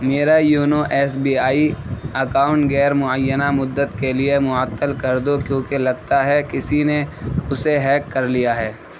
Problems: constant background noise